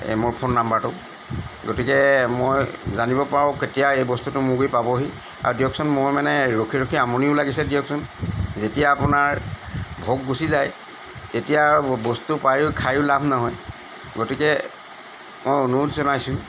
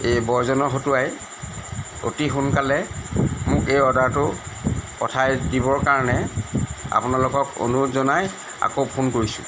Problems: constant background noise